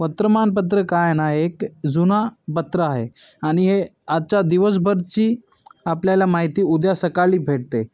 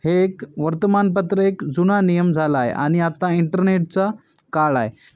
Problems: none marked